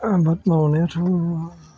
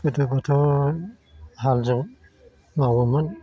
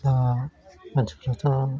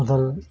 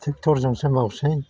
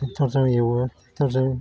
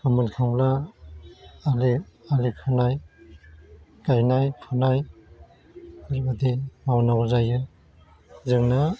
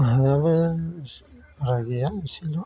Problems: constant background noise